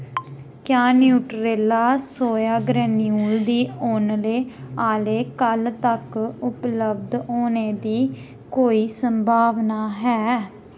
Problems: background sounds at intervals